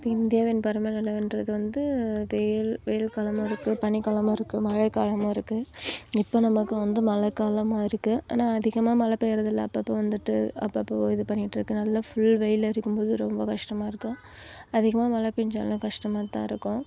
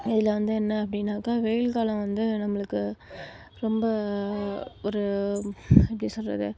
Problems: background sounds at intervals